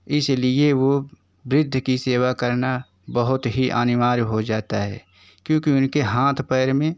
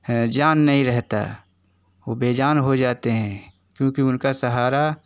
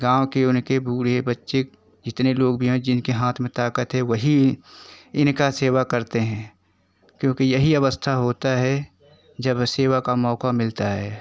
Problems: constant background noise